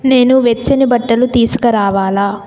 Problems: constant background noise